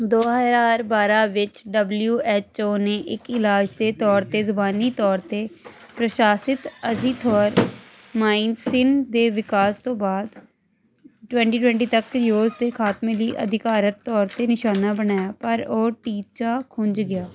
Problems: constant background noise